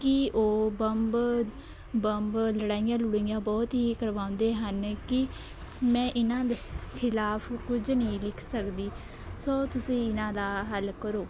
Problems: none marked